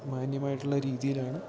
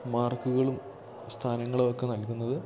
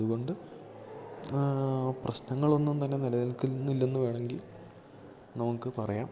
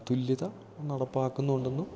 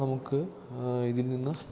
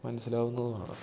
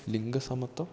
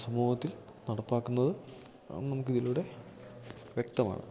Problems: background sounds at intervals, low volume